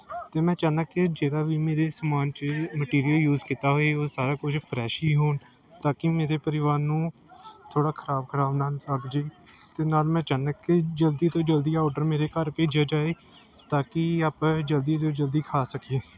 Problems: continuous background conversations